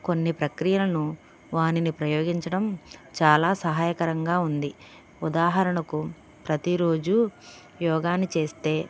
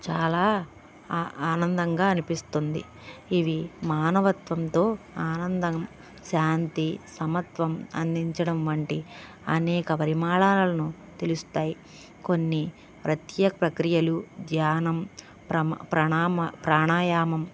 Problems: background sounds at intervals